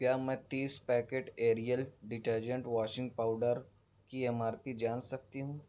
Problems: none marked